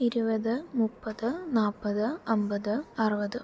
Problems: low volume